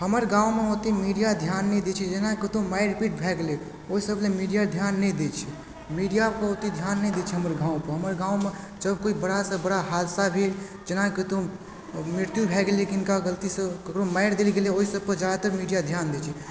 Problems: constant background noise, background conversations at intervals